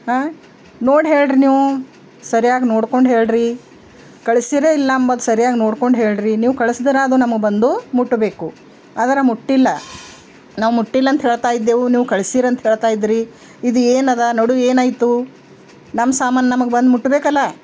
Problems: background sounds at intervals